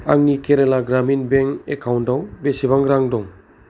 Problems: background sounds at intervals